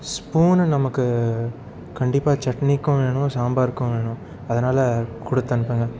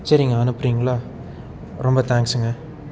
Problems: none marked